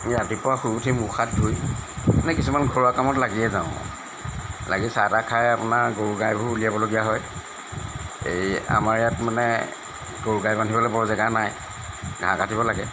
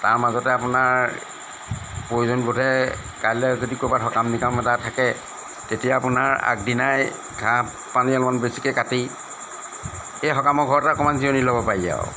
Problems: background sounds at intervals